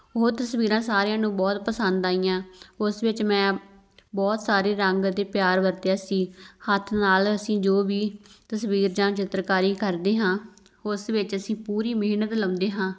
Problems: background sounds at intervals